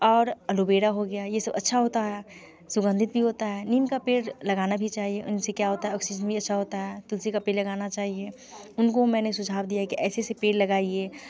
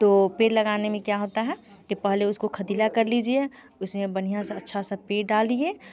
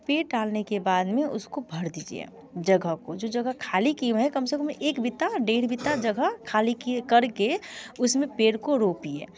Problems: background sounds at intervals, continuous background conversations